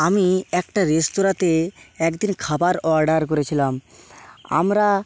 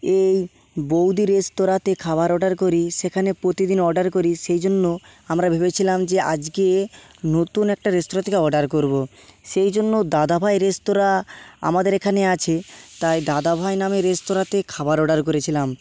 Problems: constant background noise